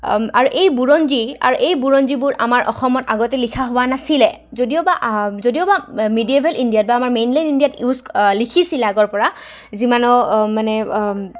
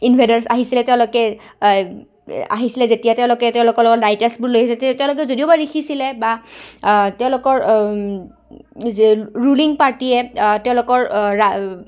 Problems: background sounds at intervals, background conversations at intervals